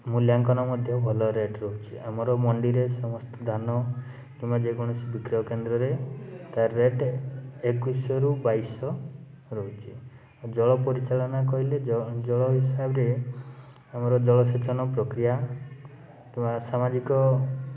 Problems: constant background noise, background conversations at intervals